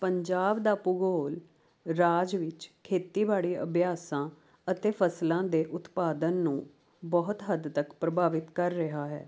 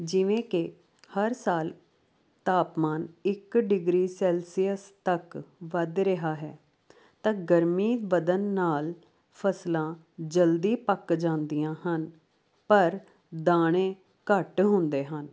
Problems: none marked